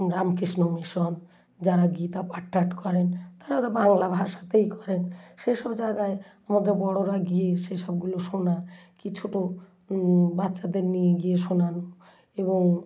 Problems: background sounds at intervals, low volume